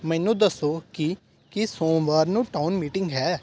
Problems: background sounds at intervals